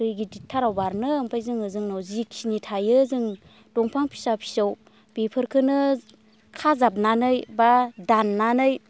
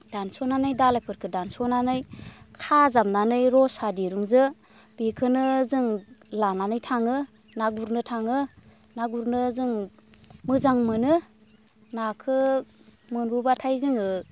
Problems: constant background noise